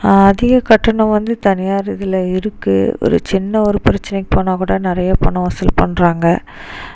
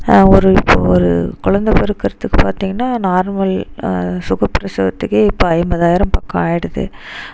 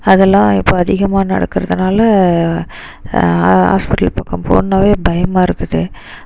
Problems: none marked